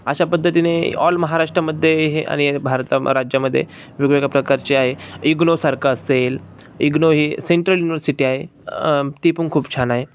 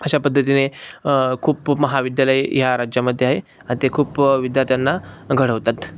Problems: none marked